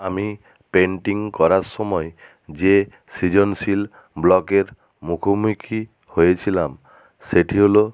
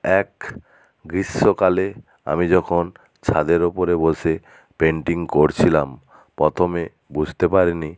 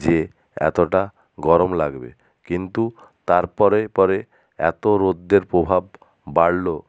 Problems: none marked